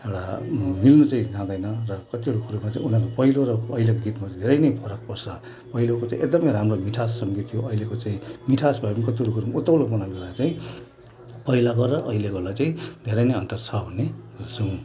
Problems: constant background noise